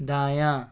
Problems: none marked